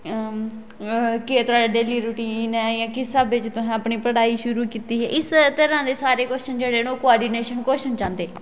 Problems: none marked